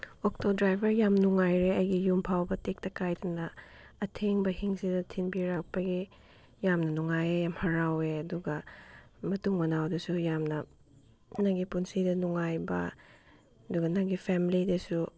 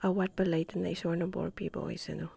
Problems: none marked